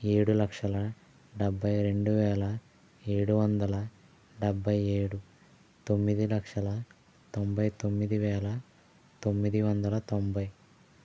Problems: none marked